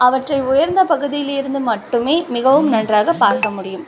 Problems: constant background noise